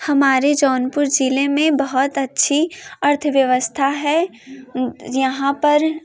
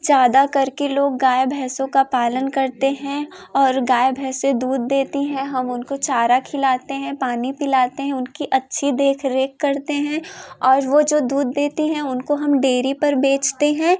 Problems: none marked